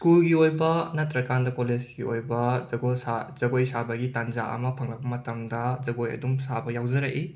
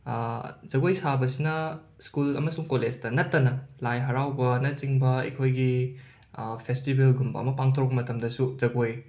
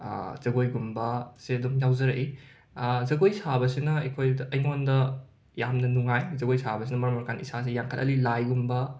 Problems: none marked